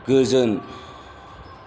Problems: background sounds at intervals